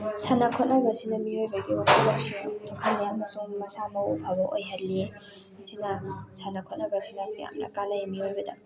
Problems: background sounds at intervals, continuous background conversations